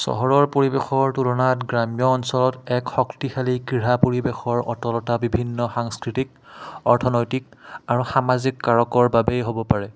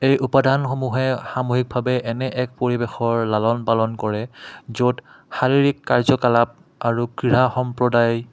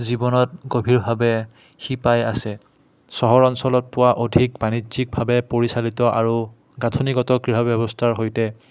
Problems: background sounds at intervals, background conversations at intervals